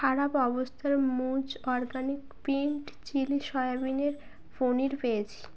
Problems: background sounds at intervals